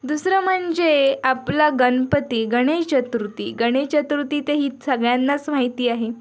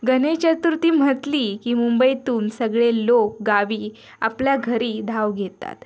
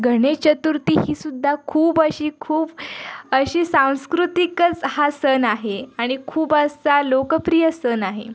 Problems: background sounds at intervals, background conversations at intervals